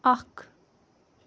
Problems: constant background noise